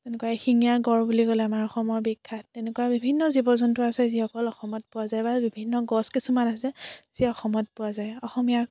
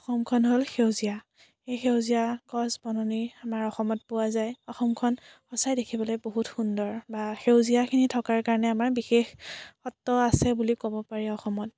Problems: none marked